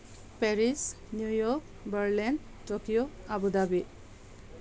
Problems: constant background noise